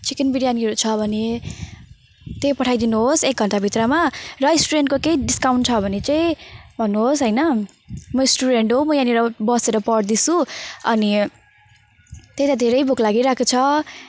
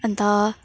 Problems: constant background noise